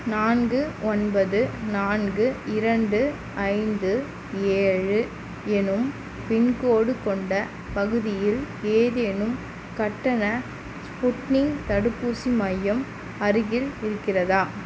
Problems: constant background noise